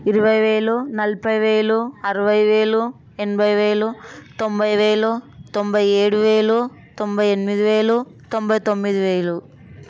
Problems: none marked